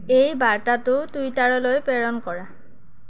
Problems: constant background noise